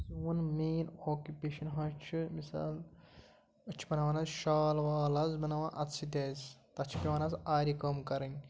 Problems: none marked